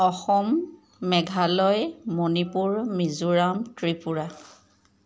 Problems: background sounds at intervals, background conversations at intervals